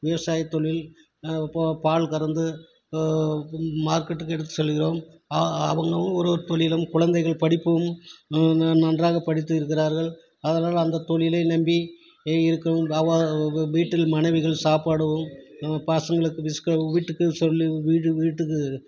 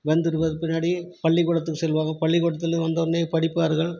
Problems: none marked